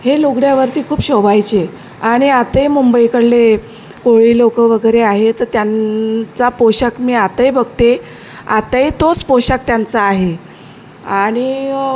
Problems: constant background noise